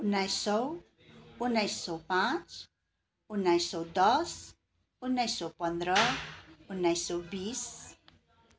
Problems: continuous background conversations